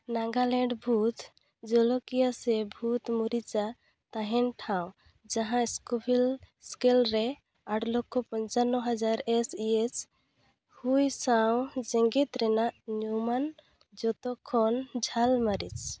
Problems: none marked